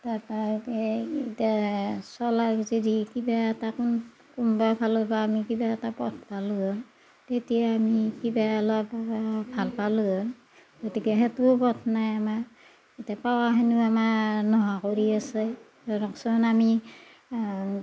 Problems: none marked